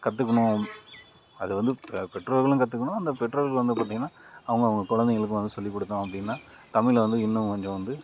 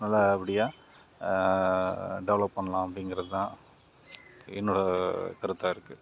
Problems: none marked